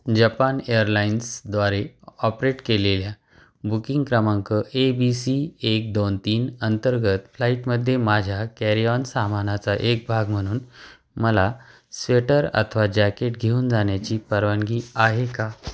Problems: constant background noise